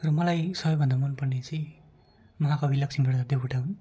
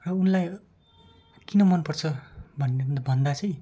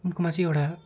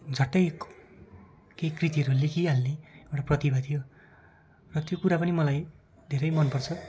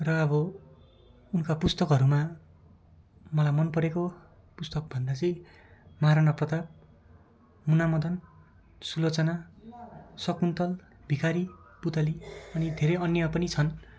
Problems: continuous background conversations